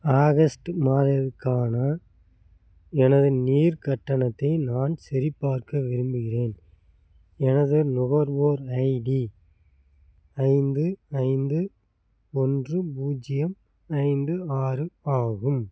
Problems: none marked